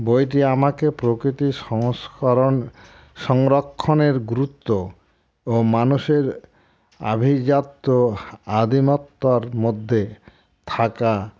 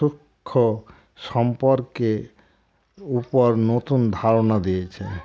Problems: constant background noise